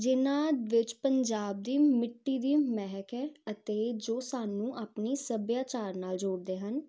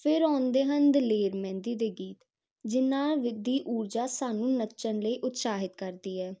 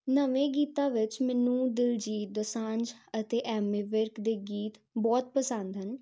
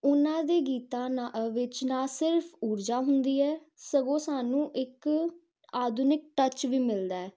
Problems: constant background noise